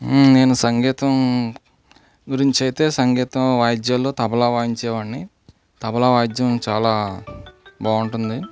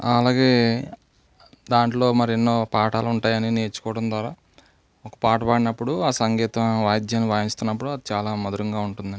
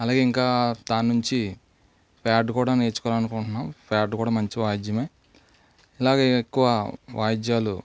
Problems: low volume